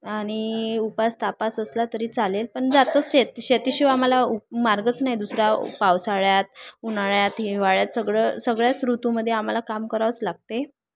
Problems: none marked